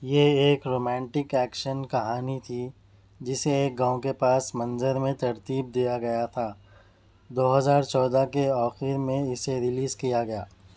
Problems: none marked